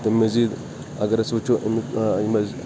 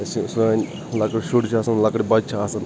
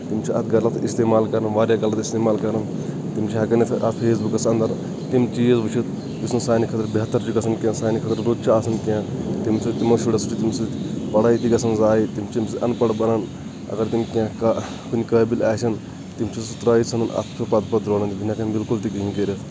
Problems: constant background noise